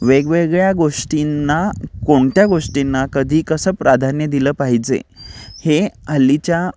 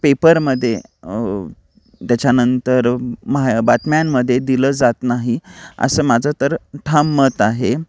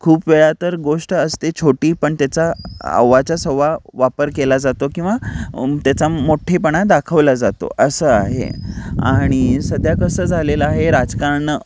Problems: background sounds at intervals